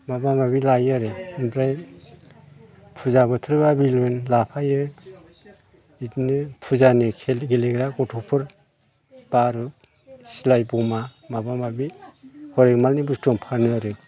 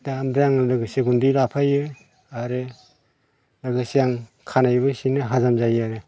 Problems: constant background noise